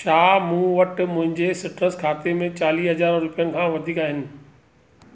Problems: none marked